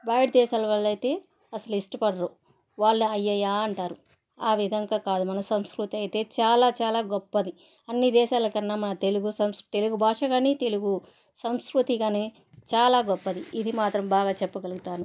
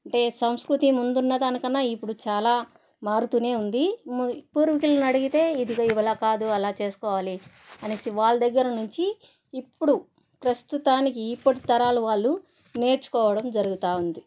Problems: background sounds at intervals